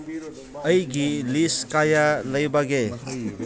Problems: low volume